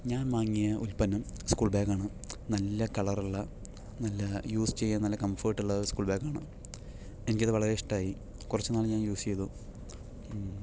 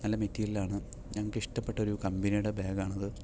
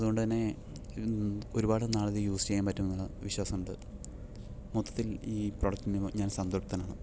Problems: low volume